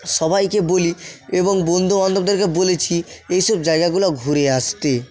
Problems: continuous background conversations, echo